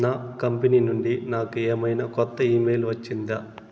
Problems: constant background noise